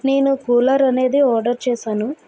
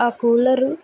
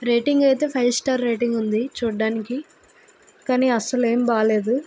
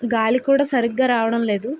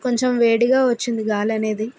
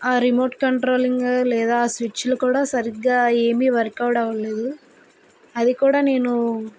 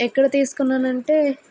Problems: constant background noise